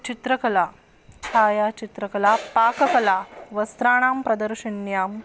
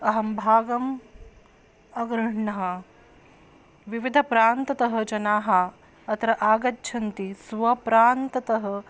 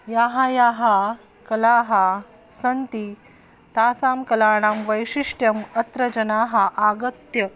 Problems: none marked